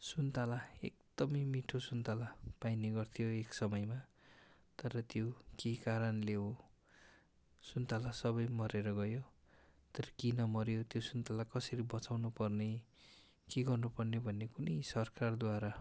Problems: background sounds at intervals